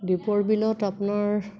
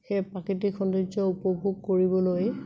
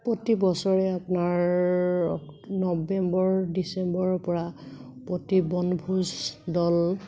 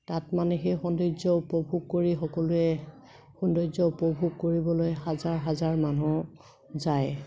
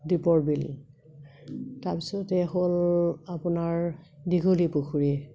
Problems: constant background noise